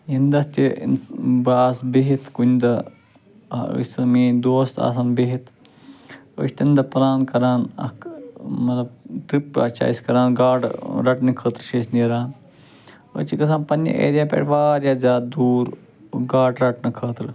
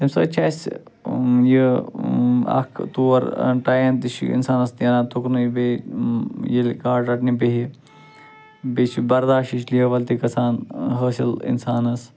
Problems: constant background noise